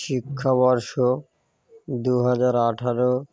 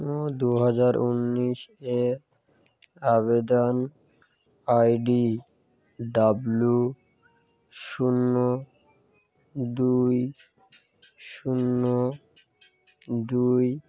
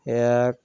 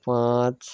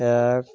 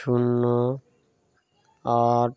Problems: none marked